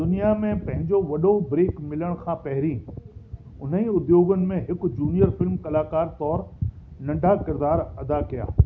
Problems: constant background noise